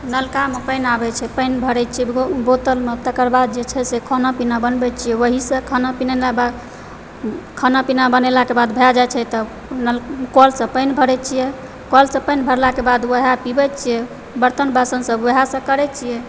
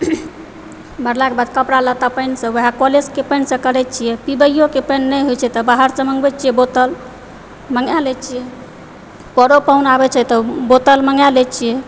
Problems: background sounds at intervals